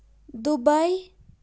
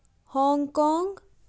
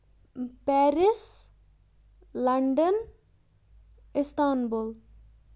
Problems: none marked